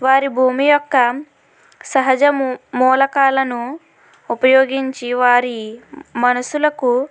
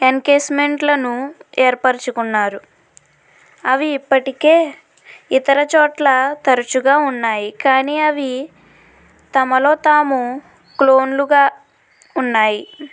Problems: none marked